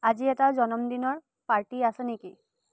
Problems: low volume